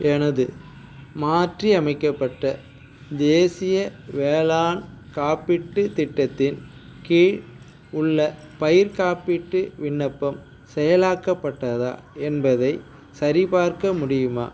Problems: background sounds at intervals